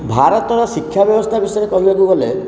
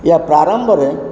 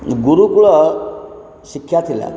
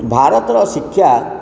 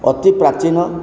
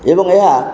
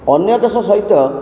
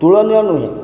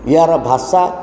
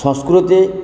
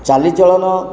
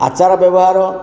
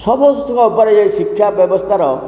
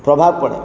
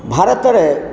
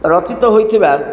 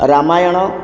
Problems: background sounds at intervals